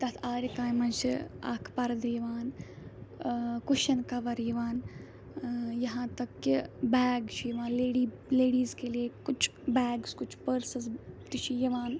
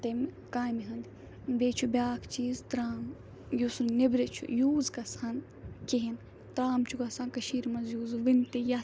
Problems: background sounds at intervals